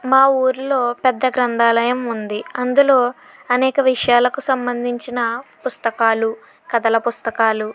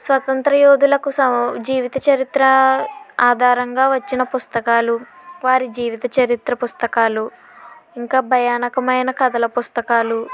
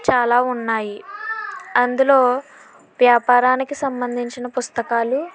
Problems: background conversations at intervals